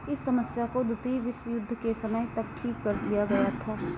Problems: constant background noise